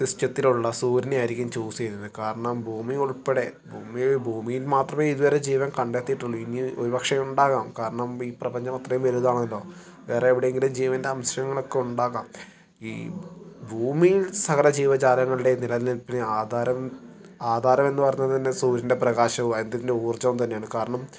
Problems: background sounds at intervals